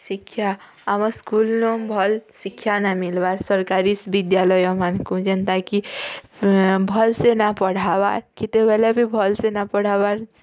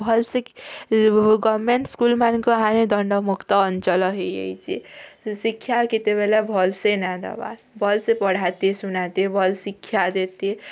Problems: none marked